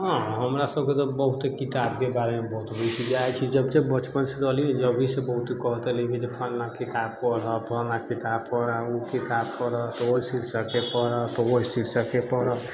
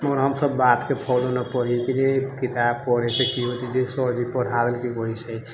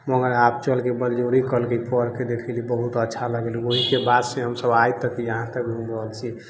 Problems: low volume